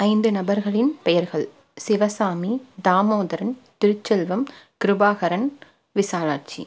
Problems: none marked